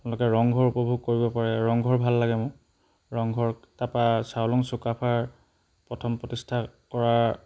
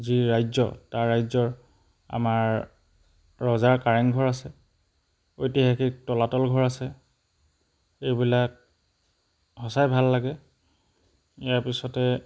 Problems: background sounds at intervals